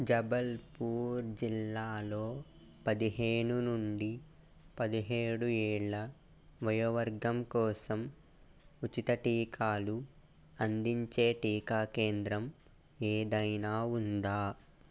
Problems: constant background noise